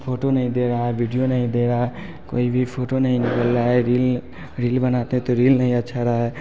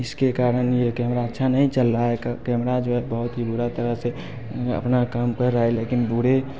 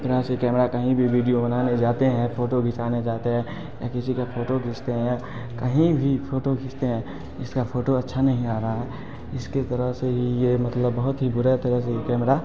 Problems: constant background noise, background conversations at intervals